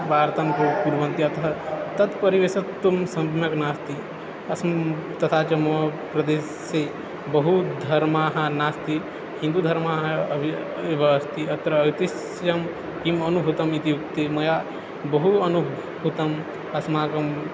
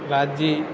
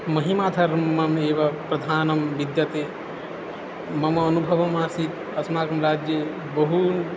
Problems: constant background noise